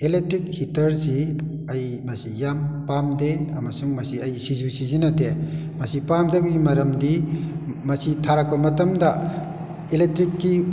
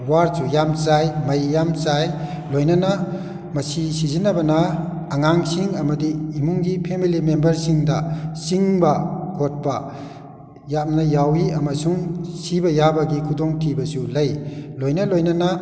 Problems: echo